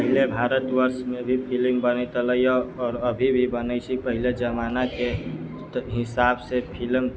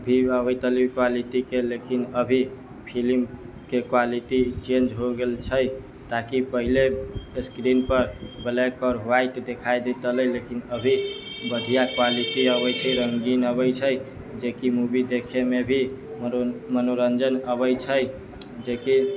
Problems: background sounds at intervals